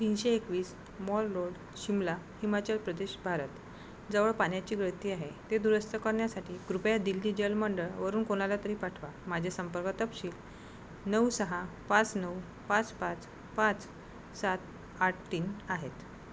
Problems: constant background noise